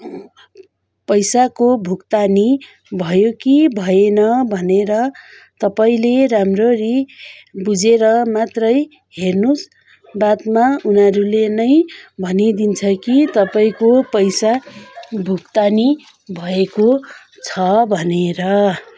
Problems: continuous background conversations